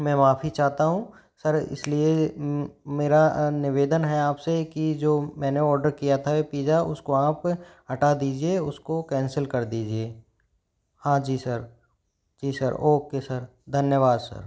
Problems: background sounds at intervals